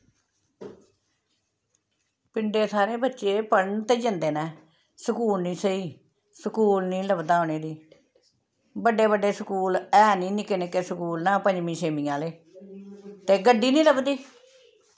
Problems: background sounds at intervals